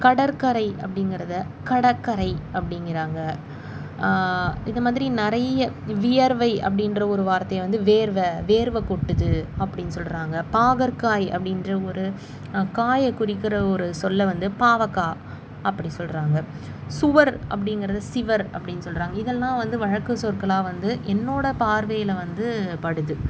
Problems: constant background noise